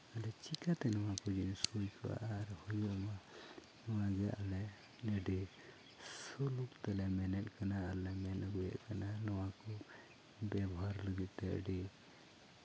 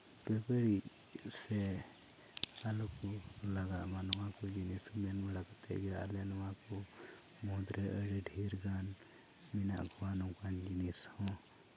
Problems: low volume